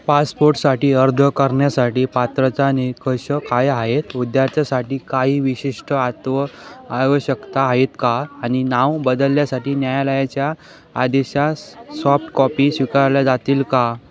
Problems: constant background noise, background conversations at intervals